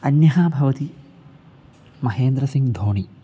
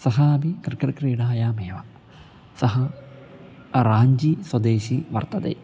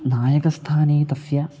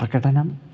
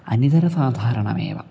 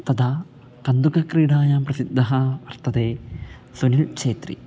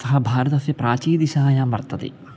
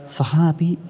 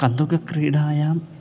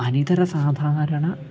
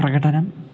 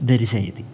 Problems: constant background noise